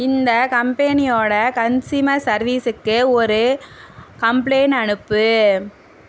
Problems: none marked